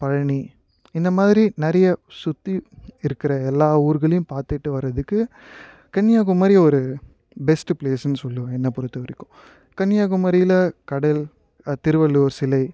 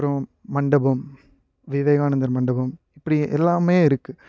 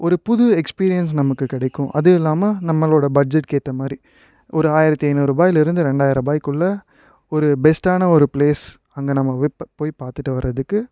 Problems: none marked